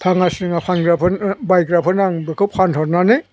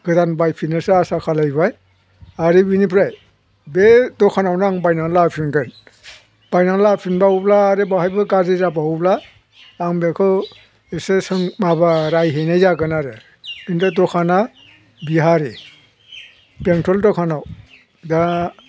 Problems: none marked